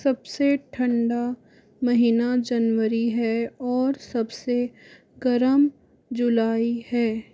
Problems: constant background noise, background conversations at intervals